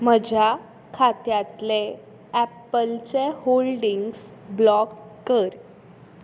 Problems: background sounds at intervals